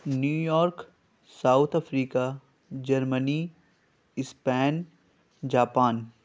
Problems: constant background noise